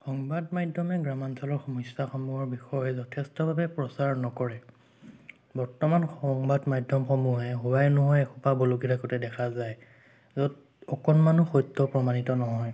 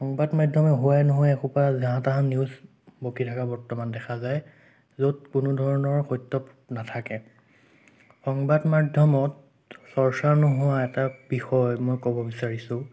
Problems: none marked